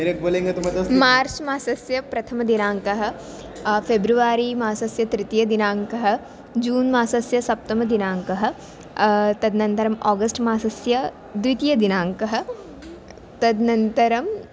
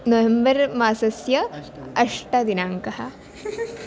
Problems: constant background noise, continuous background conversations